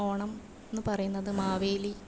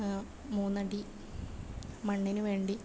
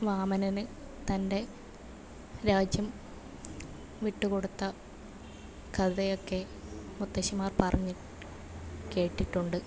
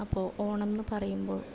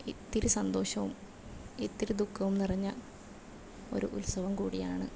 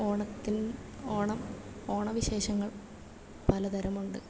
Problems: low volume